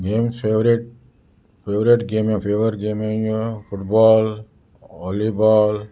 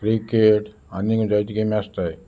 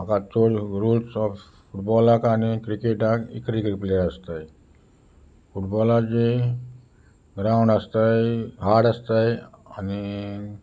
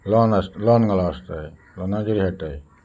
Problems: constant background noise